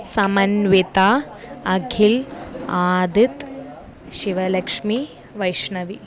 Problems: background sounds at intervals, background conversations at intervals